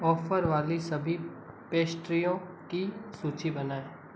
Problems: constant background noise